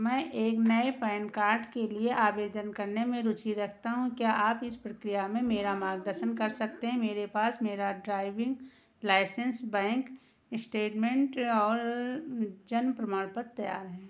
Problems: constant background noise